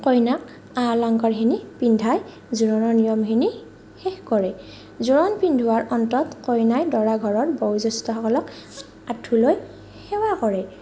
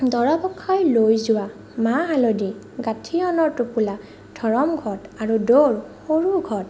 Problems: none marked